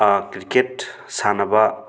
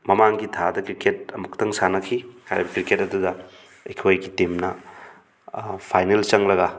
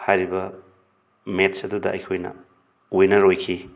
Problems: background sounds at intervals